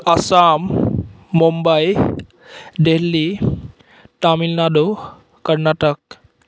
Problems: none marked